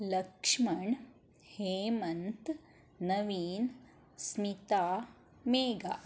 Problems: none marked